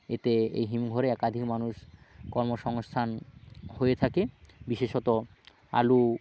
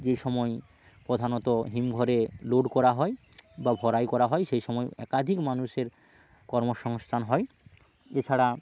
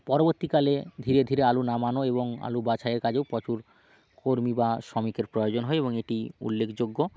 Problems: background sounds at intervals